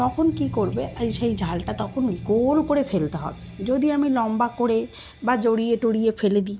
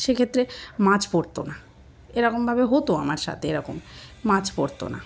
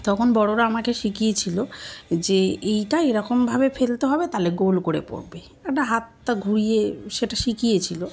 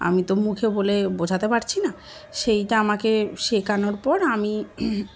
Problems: constant background noise, continuous background conversations